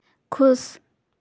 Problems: none marked